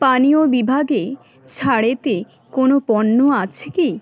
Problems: background sounds at intervals, background conversations at intervals